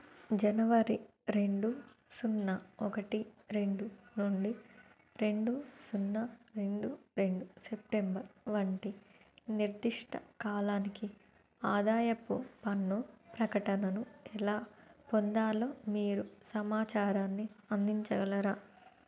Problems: low volume